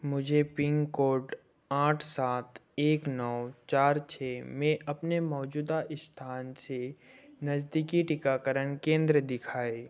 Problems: none marked